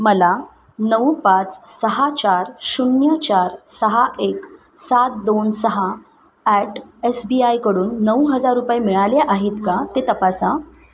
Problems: background sounds at intervals